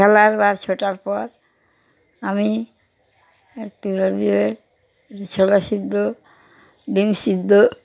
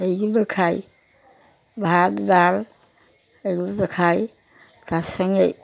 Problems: background sounds at intervals, background conversations at intervals